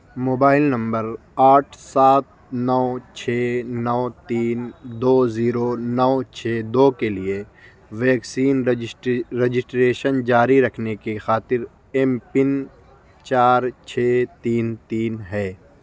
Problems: constant background noise